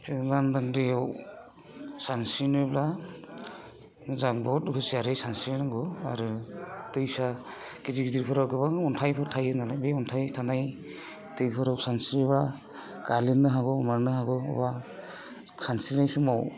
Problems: constant background noise